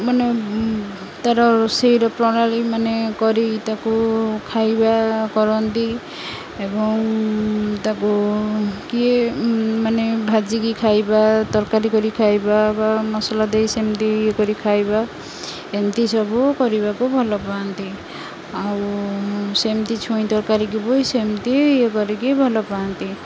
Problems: constant background noise, continuous background conversations